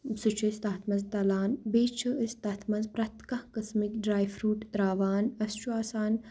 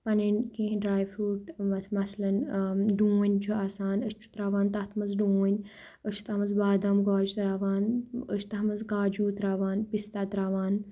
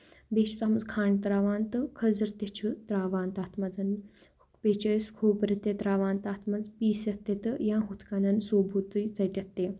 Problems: none marked